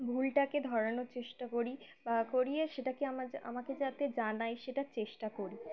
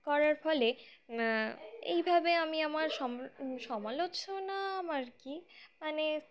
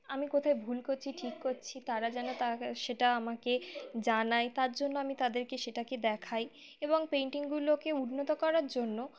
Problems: constant background noise